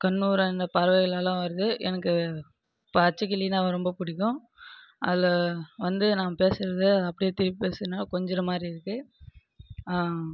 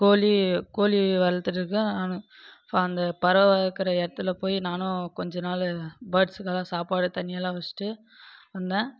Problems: background conversations at intervals